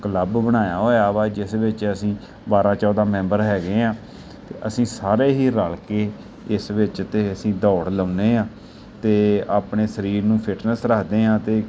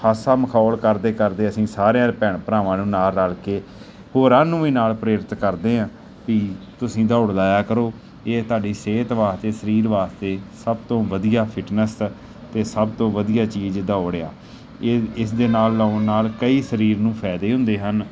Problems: none marked